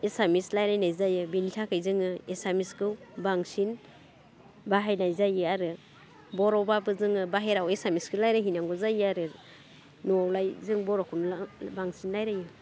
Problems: constant background noise